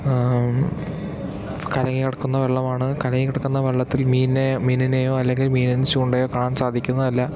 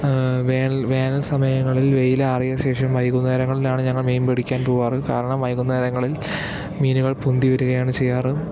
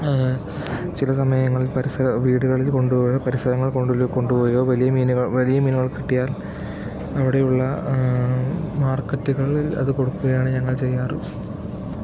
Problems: constant background noise